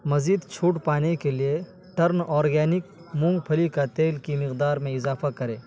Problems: constant background noise